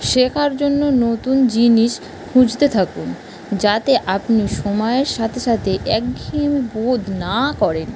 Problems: constant background noise